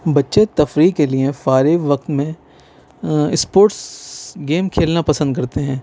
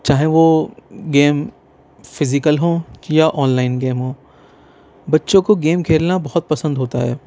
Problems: none marked